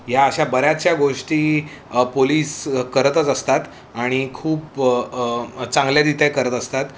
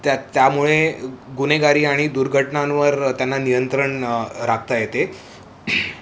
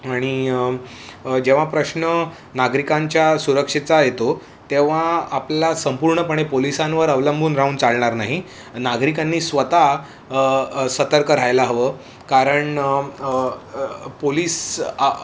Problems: none marked